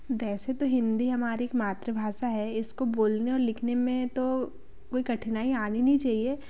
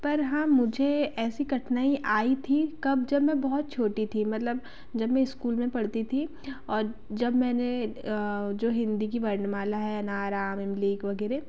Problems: none marked